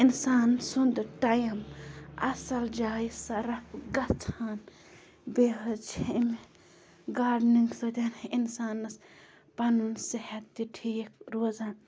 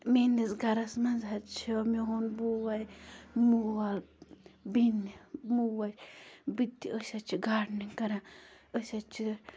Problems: constant background noise, low volume